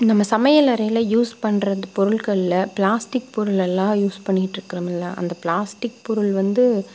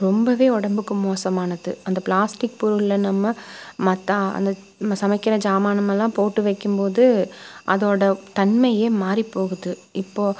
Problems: none marked